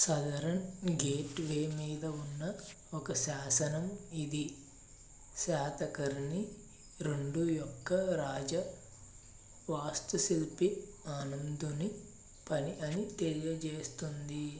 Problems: low volume